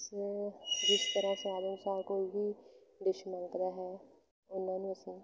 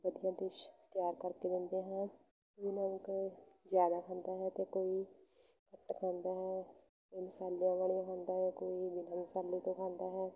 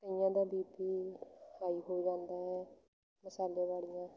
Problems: low volume